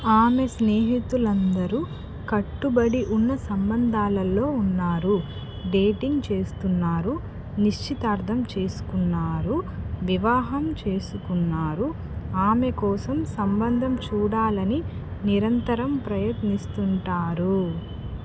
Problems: background sounds at intervals